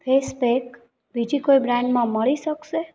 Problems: background conversations at intervals